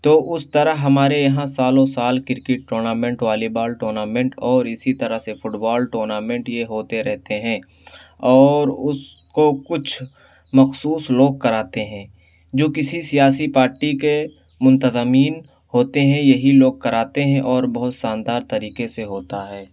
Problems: none marked